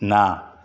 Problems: none marked